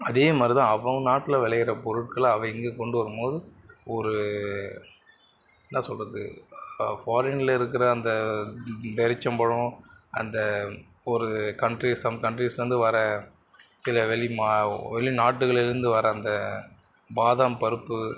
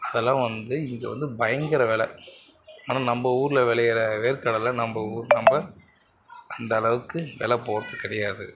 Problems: background sounds at intervals